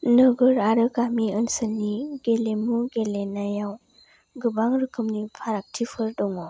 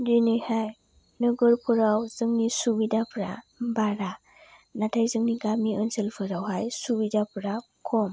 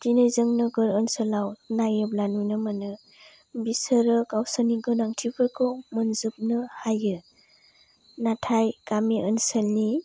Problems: low volume